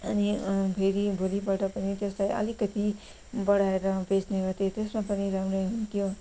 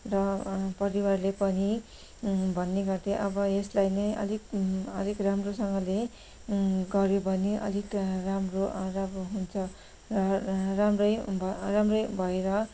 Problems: background sounds at intervals